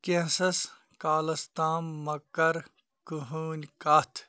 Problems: background sounds at intervals